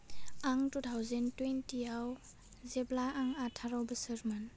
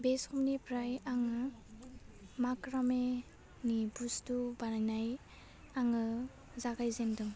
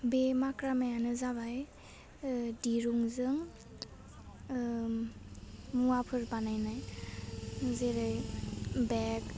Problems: low volume